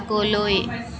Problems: continuous background conversations